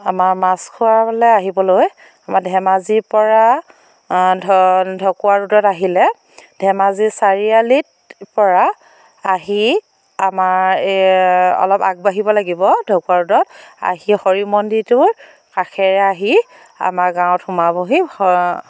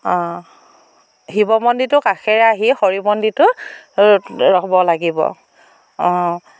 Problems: none marked